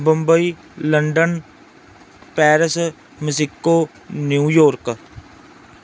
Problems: background sounds at intervals